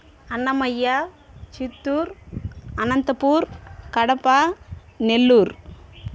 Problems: none marked